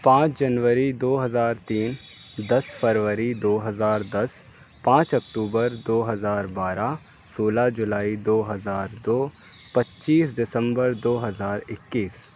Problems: constant background noise